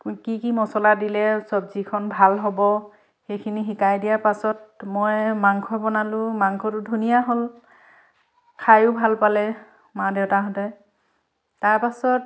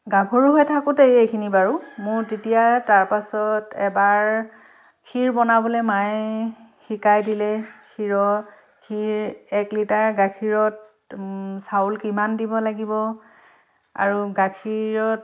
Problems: none marked